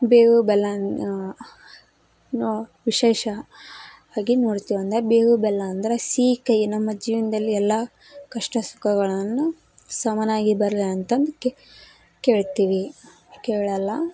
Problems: none marked